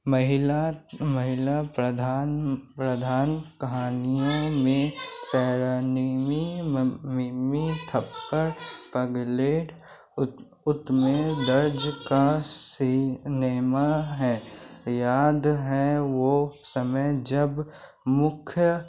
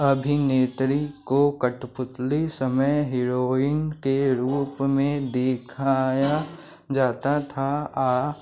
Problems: constant background noise